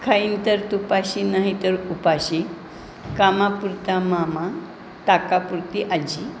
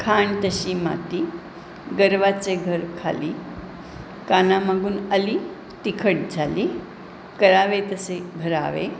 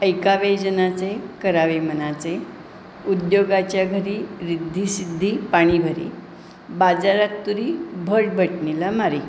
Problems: constant background noise